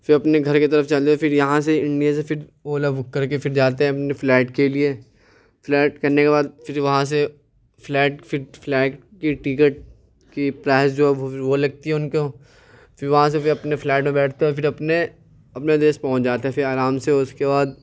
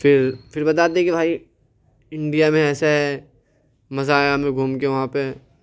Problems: none marked